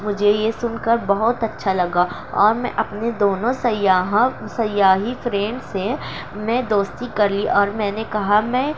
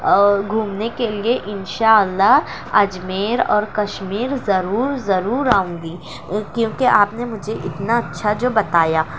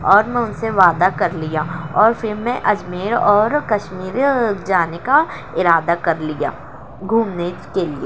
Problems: constant background noise